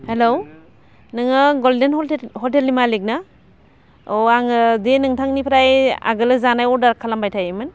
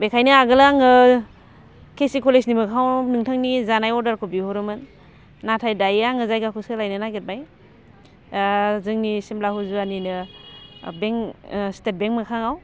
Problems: constant background noise